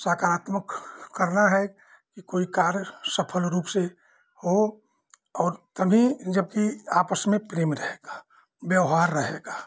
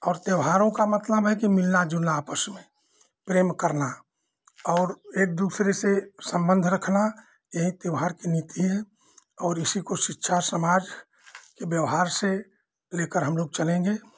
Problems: background sounds at intervals